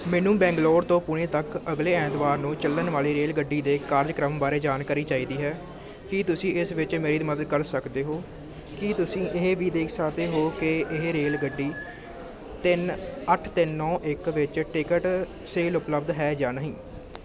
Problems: constant background noise